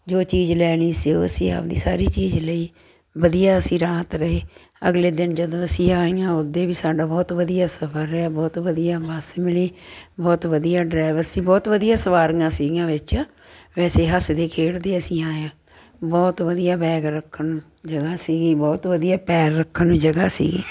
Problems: constant background noise